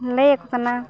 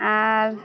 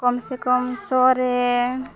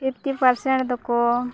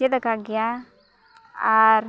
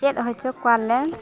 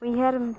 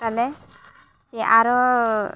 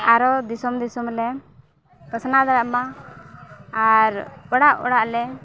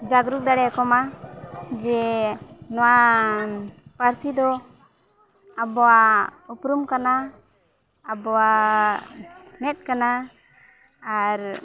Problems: background sounds at intervals, background conversations at intervals